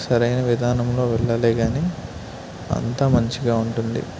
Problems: constant background noise